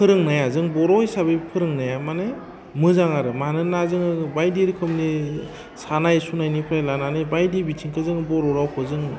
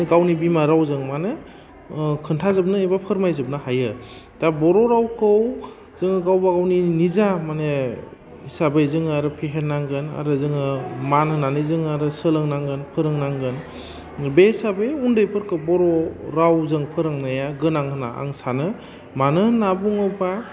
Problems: constant background noise